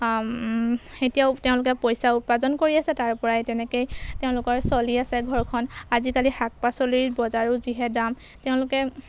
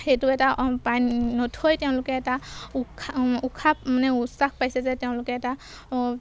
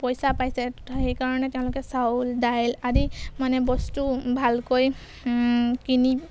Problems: background sounds at intervals